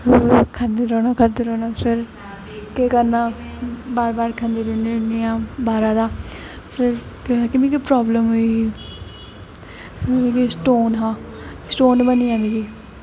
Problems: constant background noise